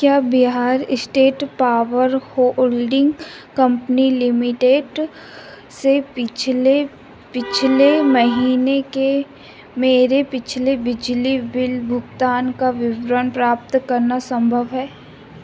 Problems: none marked